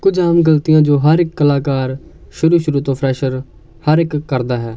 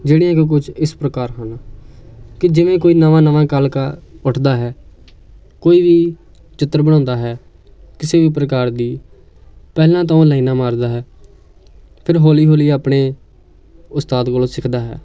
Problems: continuous background conversations